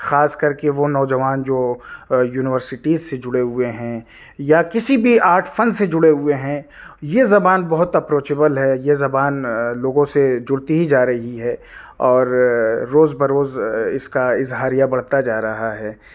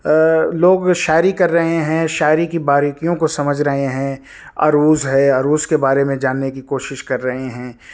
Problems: none marked